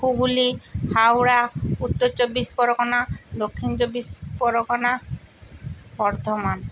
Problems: none marked